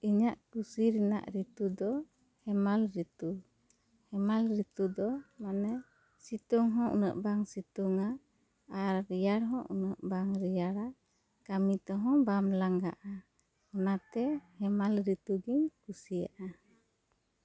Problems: none marked